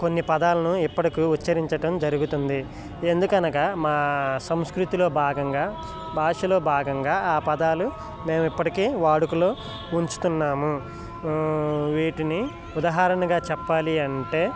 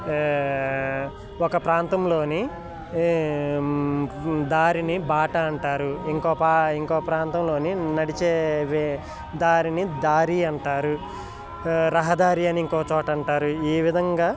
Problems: constant background noise